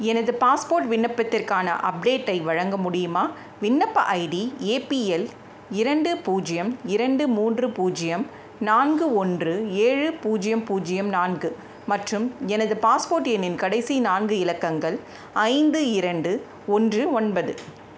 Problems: constant background noise